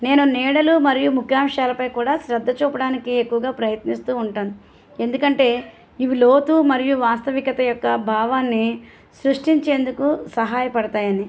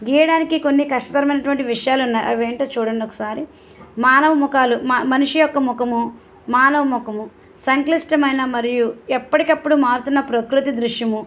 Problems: none marked